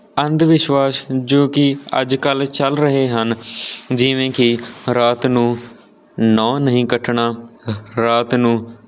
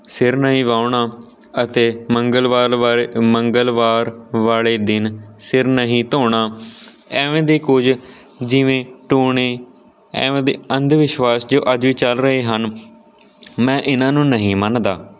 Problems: none marked